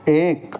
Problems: constant background noise